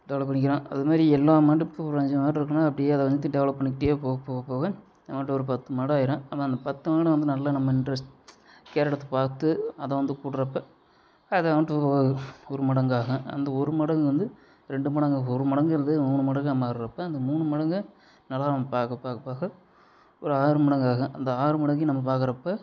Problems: constant background noise